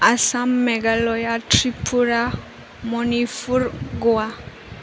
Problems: constant background noise